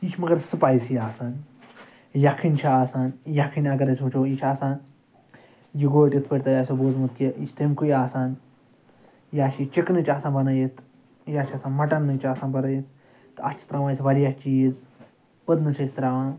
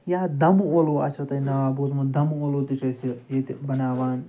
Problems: constant background noise, background conversations at intervals